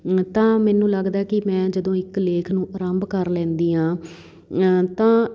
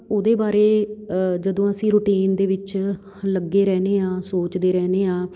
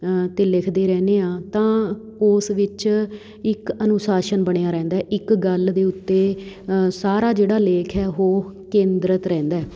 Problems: none marked